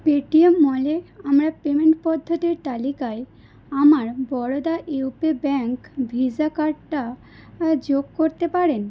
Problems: none marked